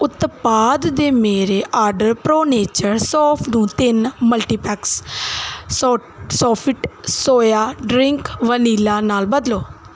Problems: none marked